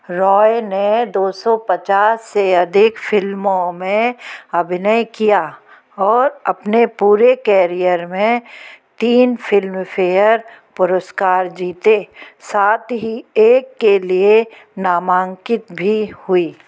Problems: background sounds at intervals